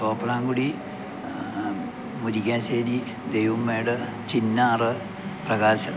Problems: background sounds at intervals